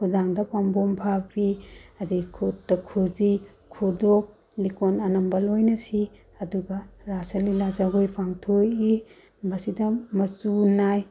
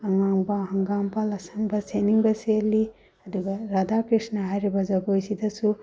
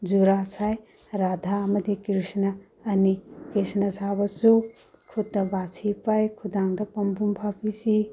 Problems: none marked